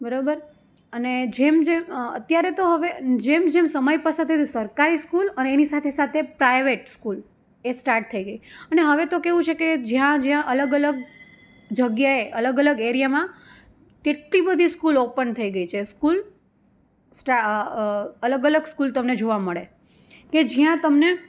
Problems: none marked